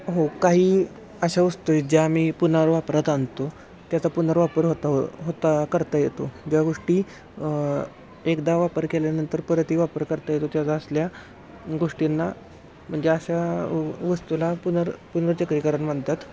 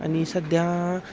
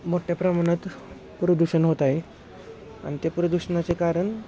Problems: constant background noise, continuous background conversations